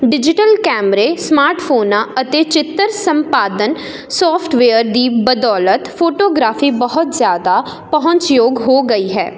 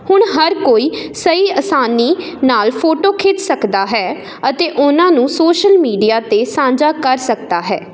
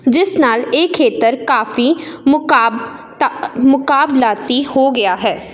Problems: none marked